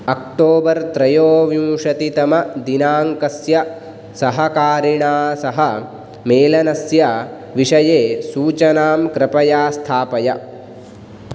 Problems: none marked